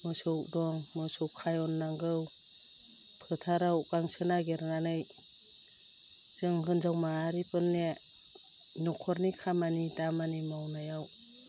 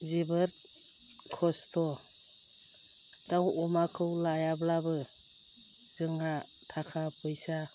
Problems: low volume